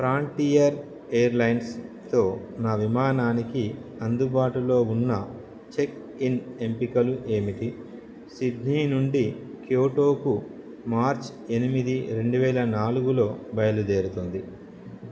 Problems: none marked